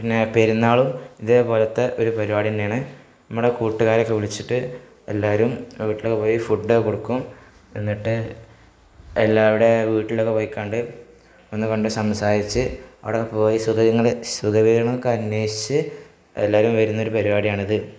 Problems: none marked